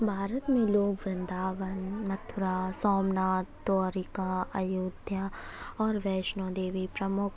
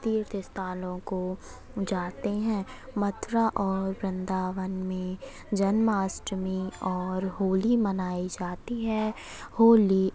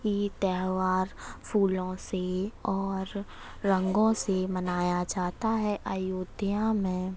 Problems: constant background noise